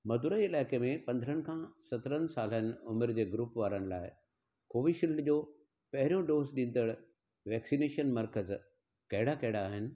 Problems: none marked